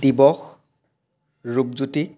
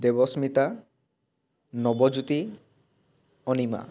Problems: none marked